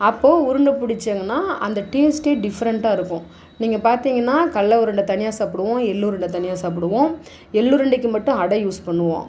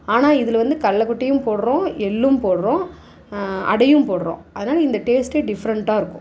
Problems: none marked